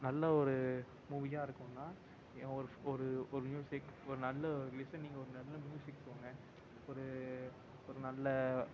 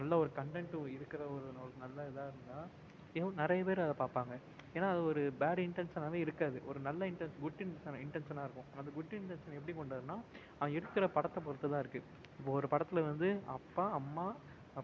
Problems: constant background noise, low volume